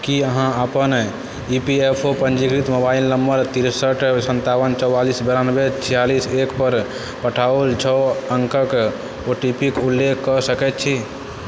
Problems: constant background noise